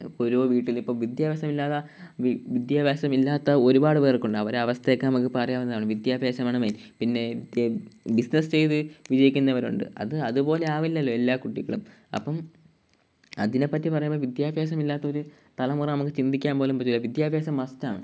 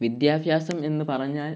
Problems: background sounds at intervals